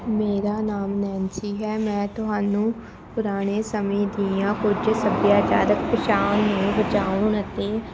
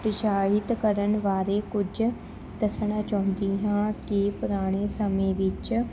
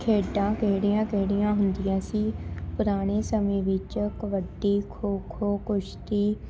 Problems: constant background noise